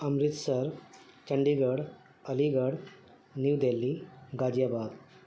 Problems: constant background noise